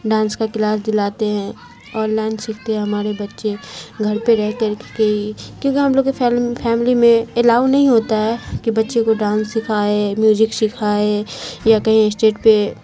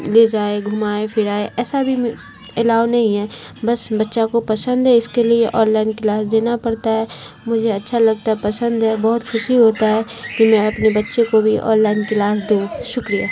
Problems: constant background noise